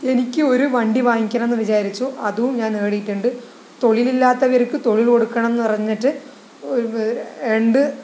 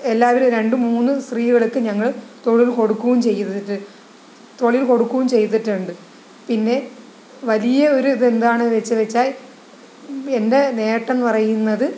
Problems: none marked